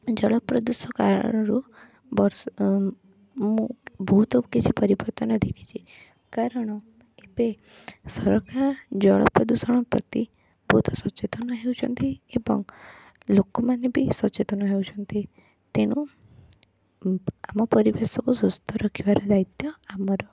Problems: background sounds at intervals